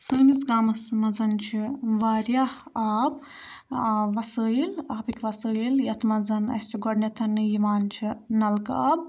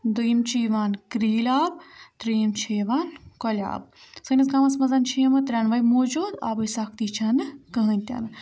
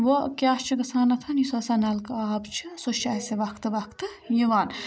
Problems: none marked